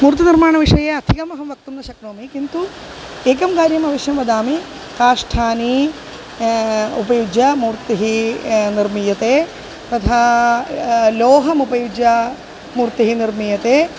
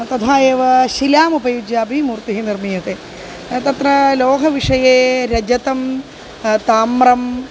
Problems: constant background noise